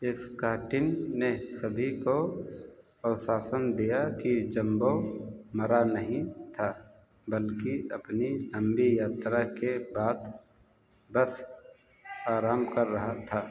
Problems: background sounds at intervals, echo